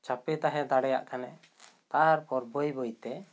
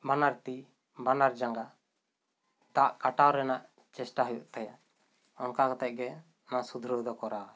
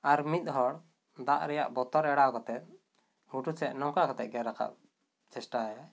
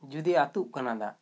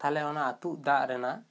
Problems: none marked